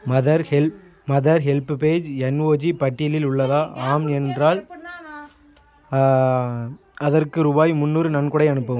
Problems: continuous background conversations